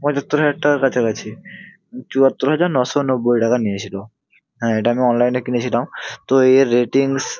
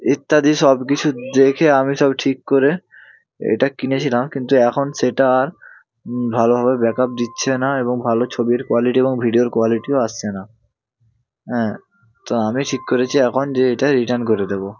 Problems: background sounds at intervals, continuous background conversations